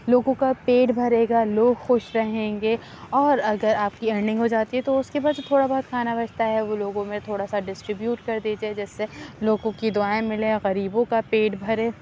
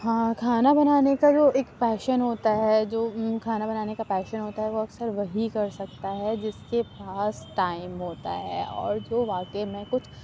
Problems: constant background noise, low volume